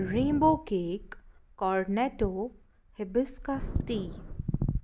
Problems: none marked